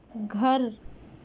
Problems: constant background noise